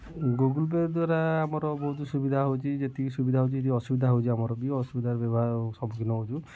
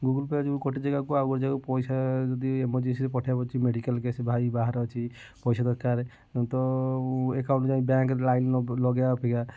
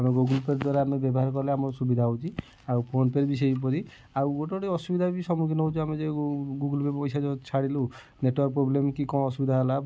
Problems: none marked